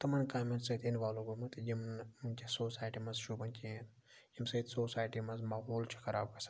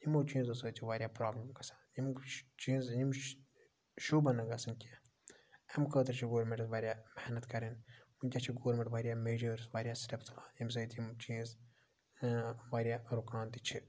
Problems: low volume